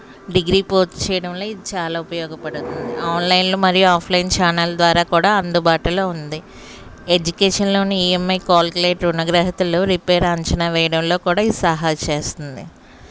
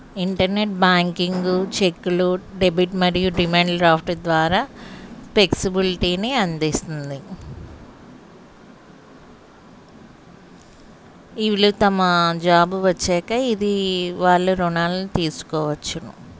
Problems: none marked